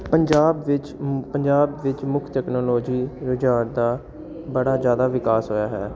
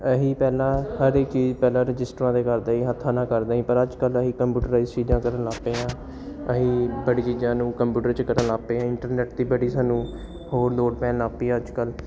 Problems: none marked